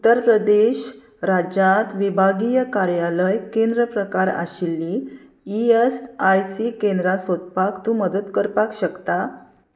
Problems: none marked